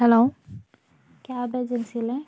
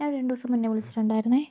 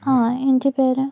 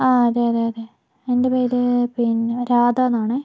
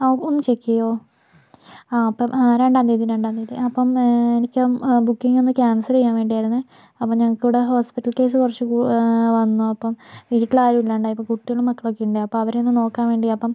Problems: background sounds at intervals, low volume